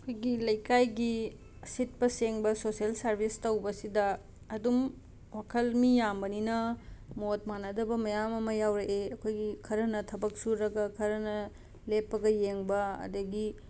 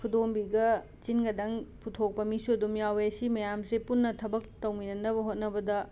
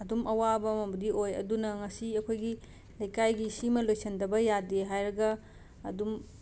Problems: background sounds at intervals